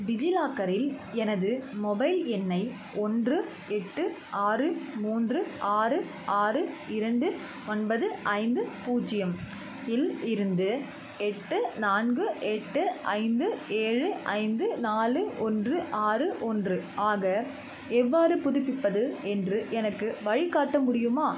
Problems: constant background noise